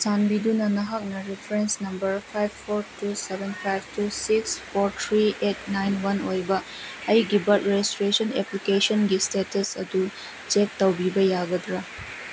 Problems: constant background noise